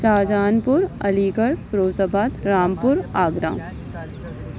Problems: none marked